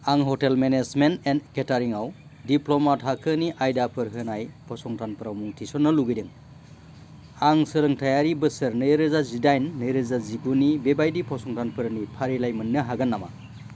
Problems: constant background noise